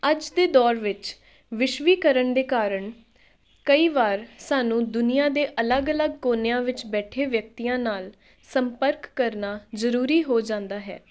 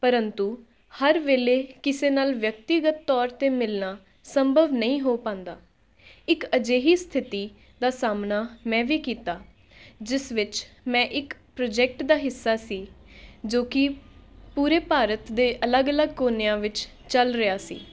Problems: none marked